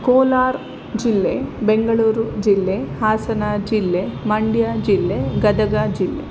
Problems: constant background noise